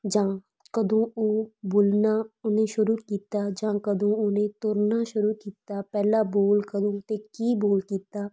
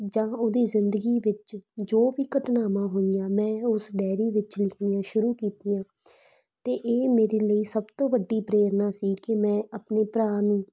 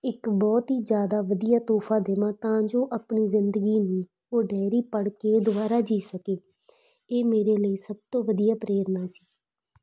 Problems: background sounds at intervals